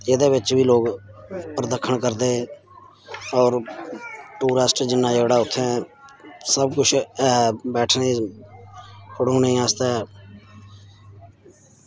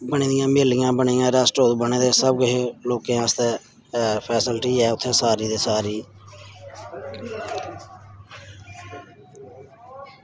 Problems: none marked